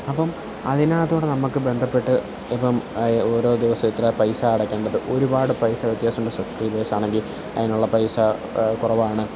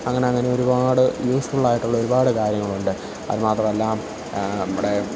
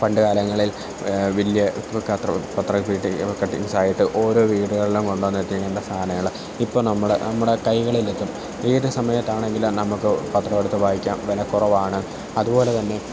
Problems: none marked